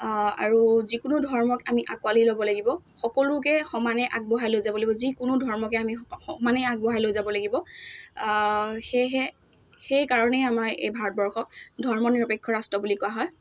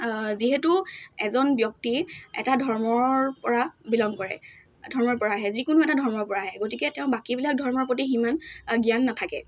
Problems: none marked